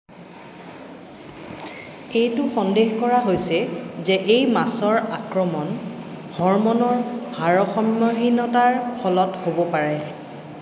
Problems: background sounds at intervals